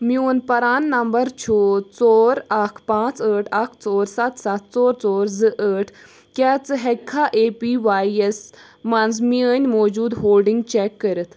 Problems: none marked